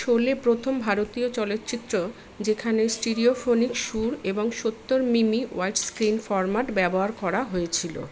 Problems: constant background noise, background conversations at intervals